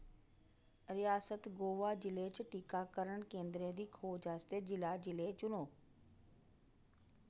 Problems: low volume